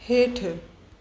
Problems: constant background noise, echo